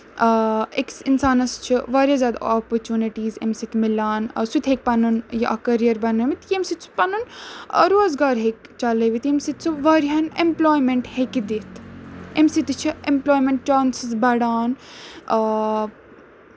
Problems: none marked